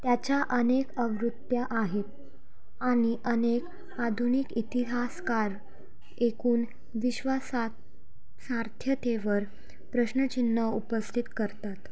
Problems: background sounds at intervals